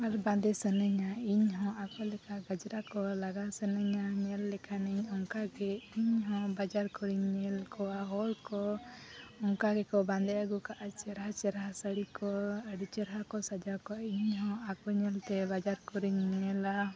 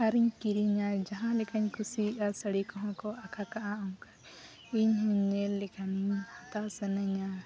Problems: none marked